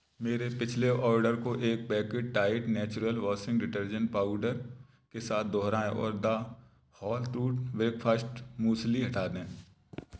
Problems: background sounds at intervals